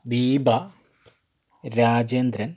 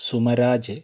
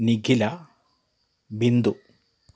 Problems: background sounds at intervals